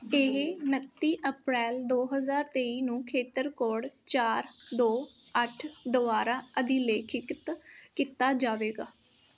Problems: none marked